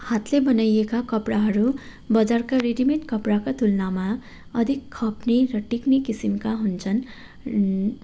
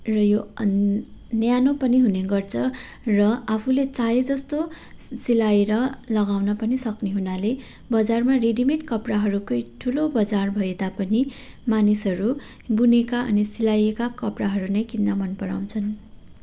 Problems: background sounds at intervals